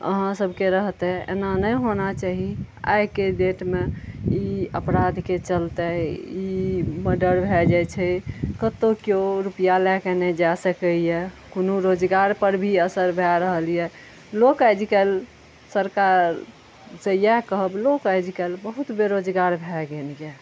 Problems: none marked